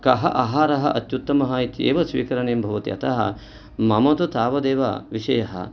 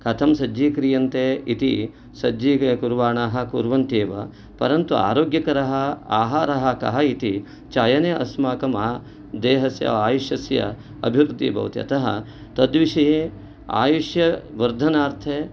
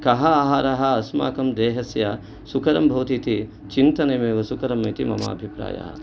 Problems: none marked